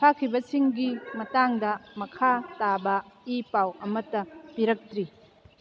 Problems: background conversations at intervals